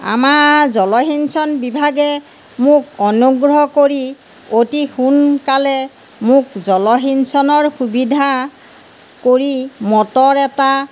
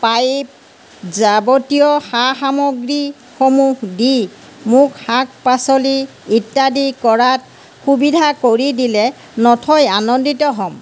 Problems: background sounds at intervals